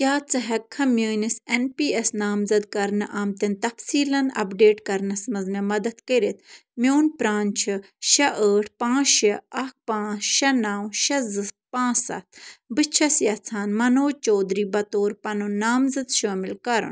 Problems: none marked